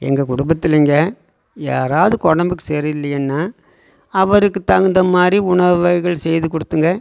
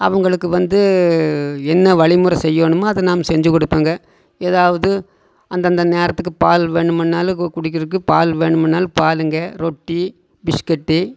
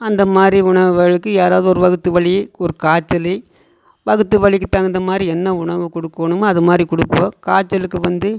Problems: none marked